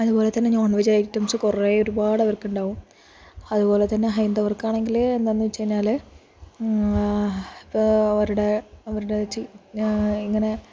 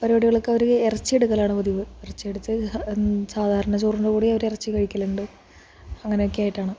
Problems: low volume